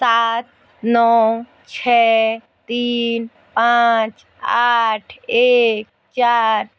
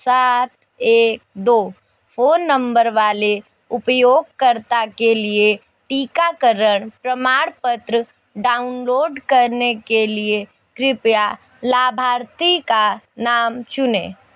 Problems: background sounds at intervals, background conversations at intervals